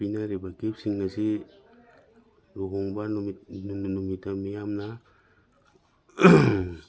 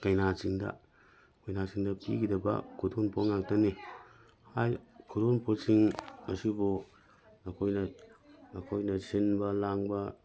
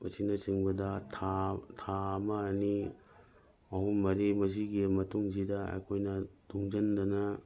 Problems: background sounds at intervals